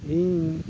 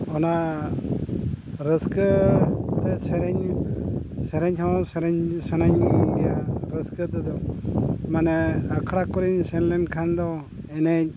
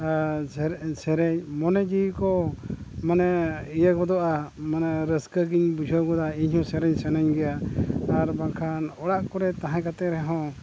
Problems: constant background noise